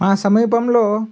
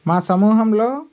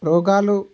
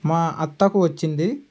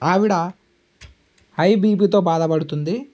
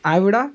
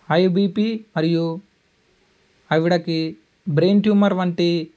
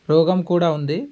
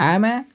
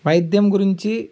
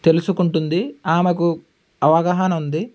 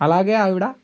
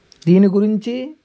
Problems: none marked